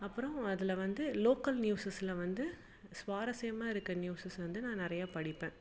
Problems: background sounds at intervals